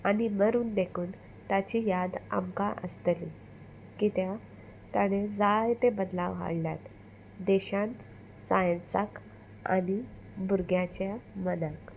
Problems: constant background noise